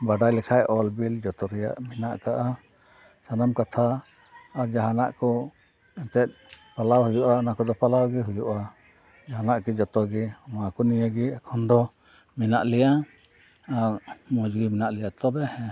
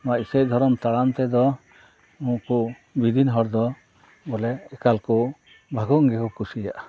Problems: background sounds at intervals, background conversations at intervals